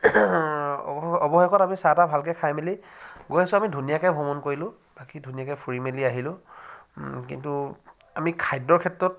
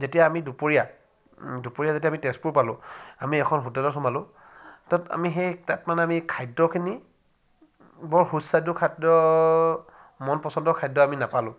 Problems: none marked